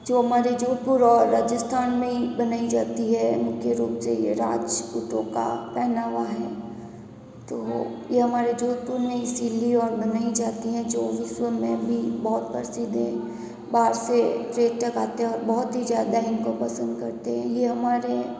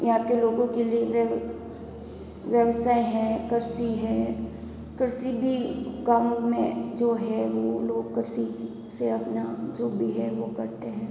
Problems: background sounds at intervals, background conversations at intervals